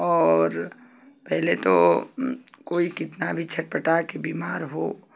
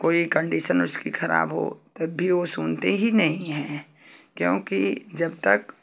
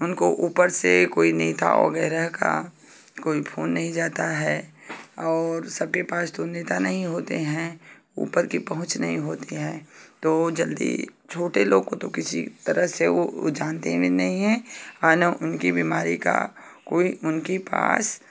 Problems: none marked